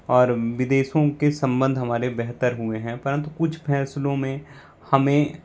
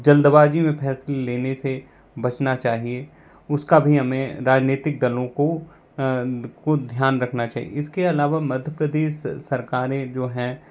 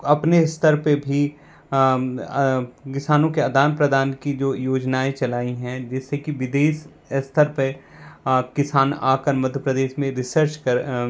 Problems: constant background noise